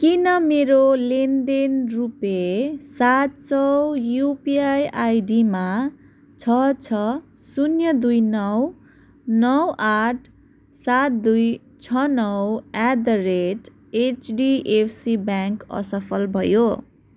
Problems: none marked